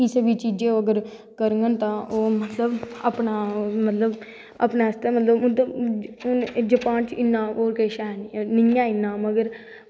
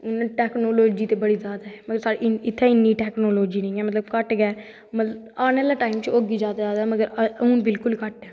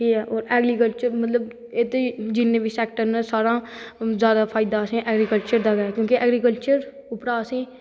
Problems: background sounds at intervals, echo